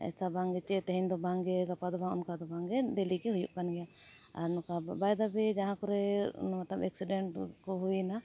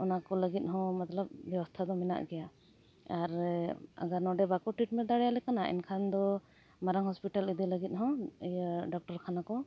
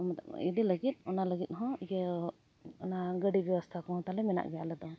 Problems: none marked